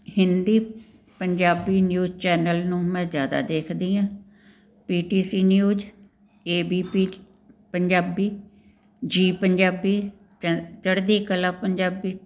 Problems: background sounds at intervals